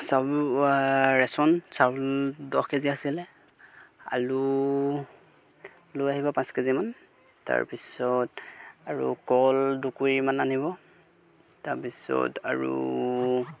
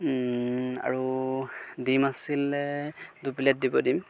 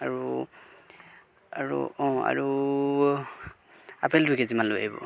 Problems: background sounds at intervals